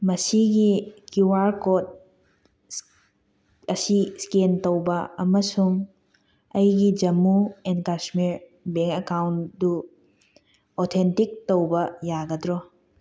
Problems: none marked